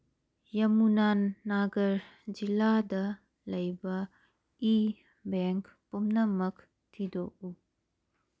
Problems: none marked